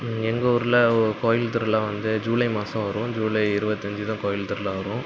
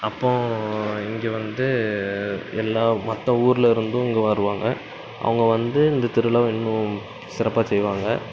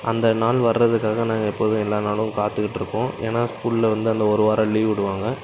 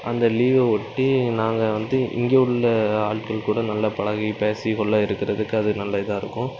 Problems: constant background noise